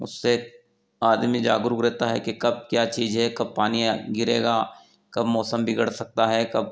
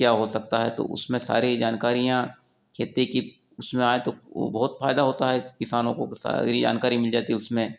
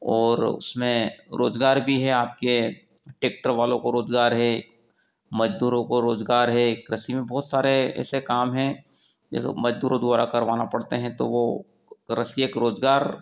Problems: none marked